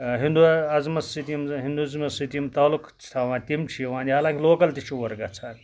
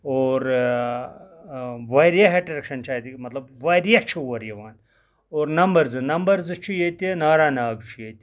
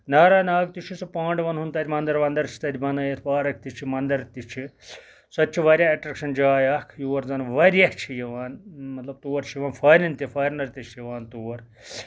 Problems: background sounds at intervals